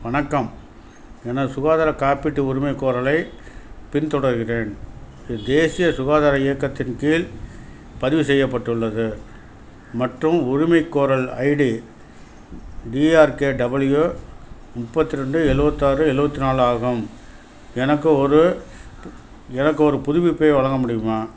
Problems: none marked